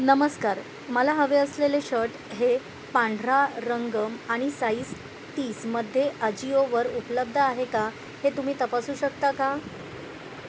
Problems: none marked